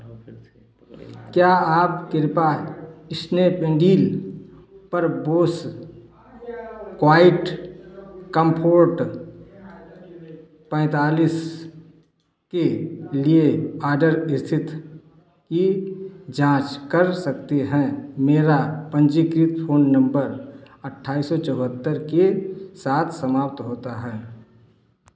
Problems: none marked